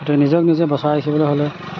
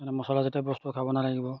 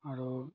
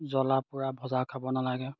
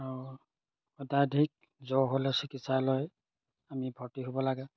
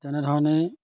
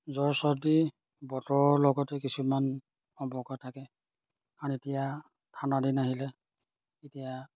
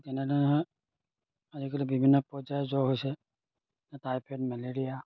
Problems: none marked